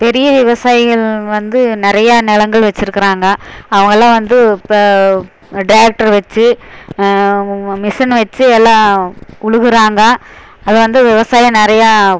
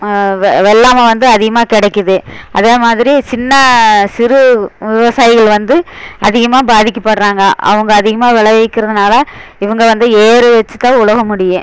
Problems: constant background noise